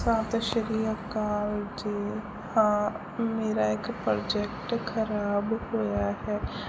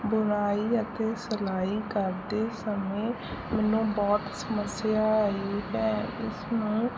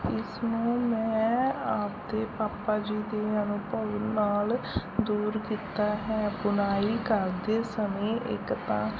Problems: constant background noise